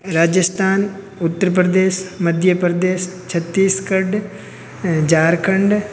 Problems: background sounds at intervals